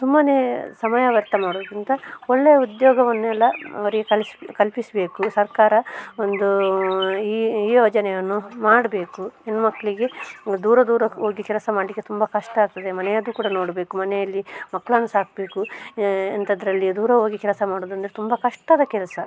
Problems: none marked